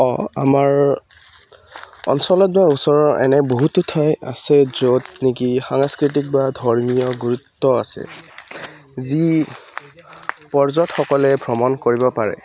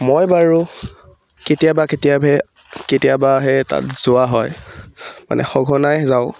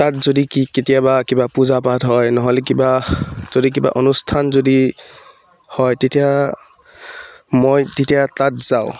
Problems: background sounds at intervals